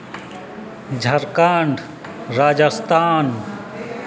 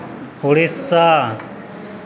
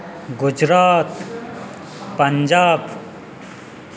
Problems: constant background noise